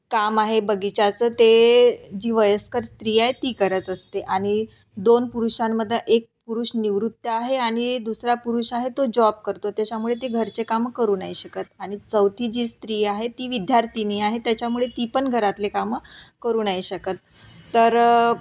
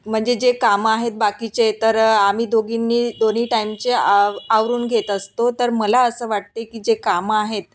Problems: none marked